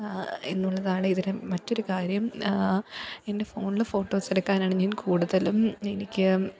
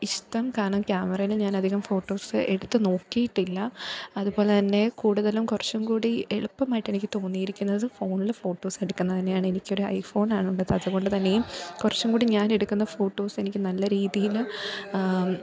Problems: background conversations at intervals